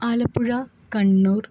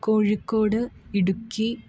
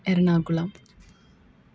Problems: background sounds at intervals